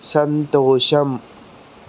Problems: constant background noise